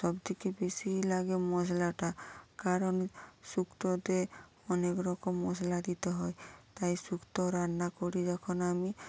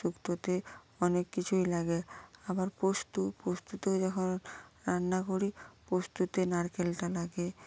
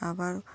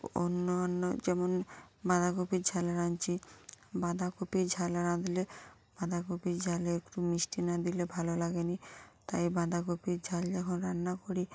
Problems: none marked